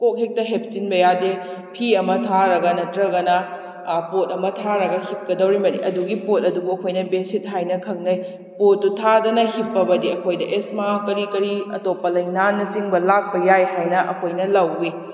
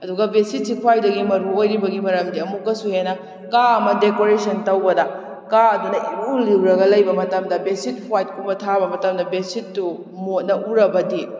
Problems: none marked